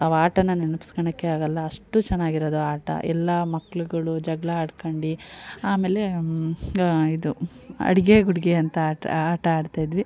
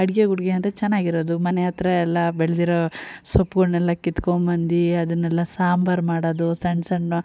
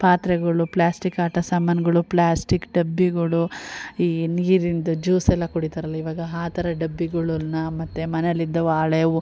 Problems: none marked